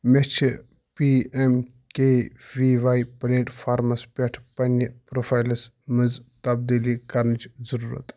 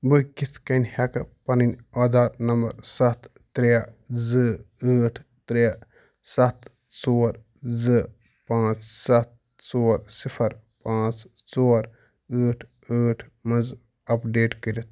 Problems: none marked